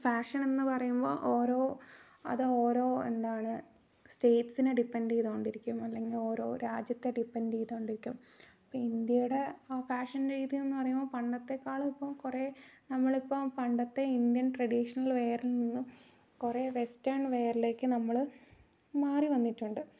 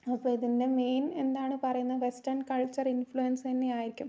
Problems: low volume